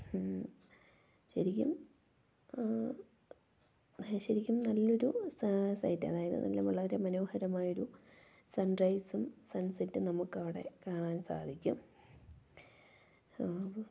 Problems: low volume